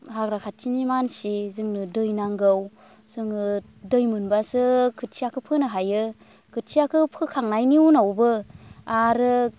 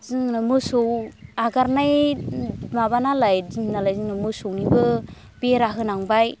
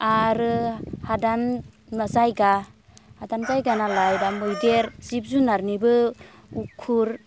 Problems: constant background noise